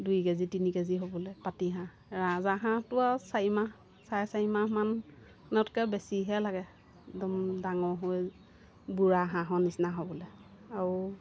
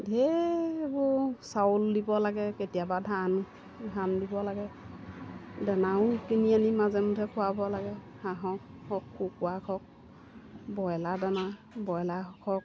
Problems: constant background noise